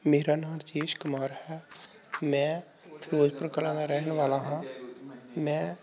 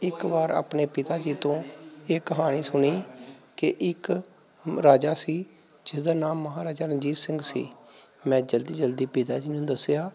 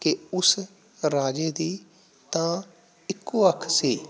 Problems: background sounds at intervals